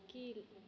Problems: low volume